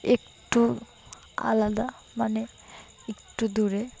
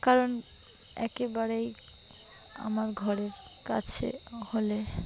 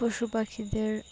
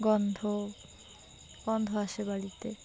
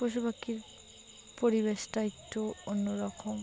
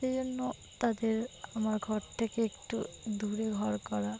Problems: constant background noise, continuous background conversations